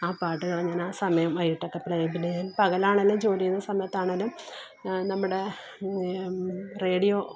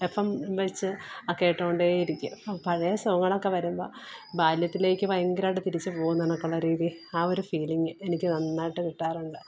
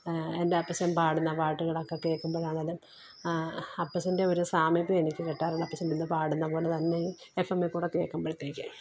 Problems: background sounds at intervals